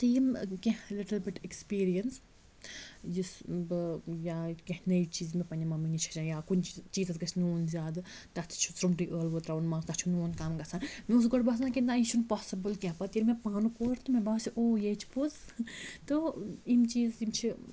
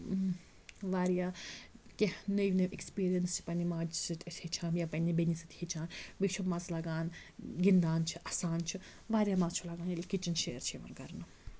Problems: constant background noise